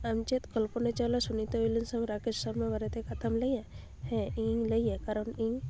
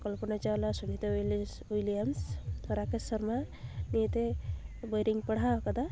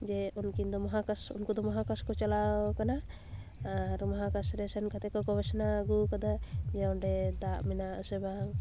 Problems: constant background noise